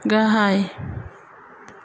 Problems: constant background noise